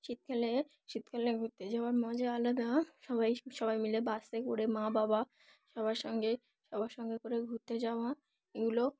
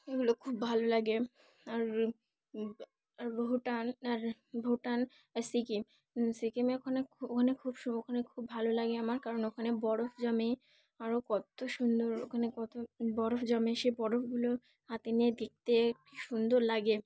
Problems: none marked